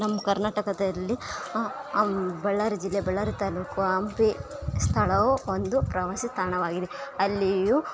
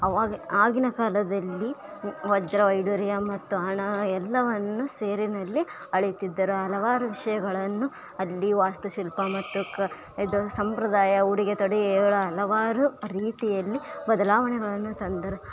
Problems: background sounds at intervals